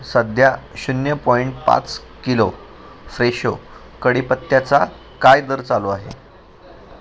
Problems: constant background noise, background conversations at intervals